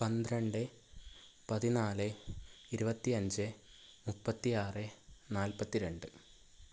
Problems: none marked